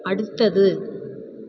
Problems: constant background noise